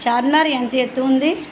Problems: constant background noise